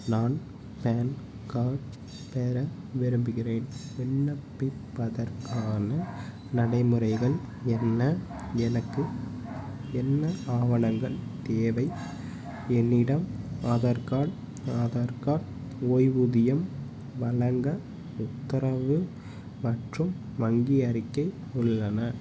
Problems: constant background noise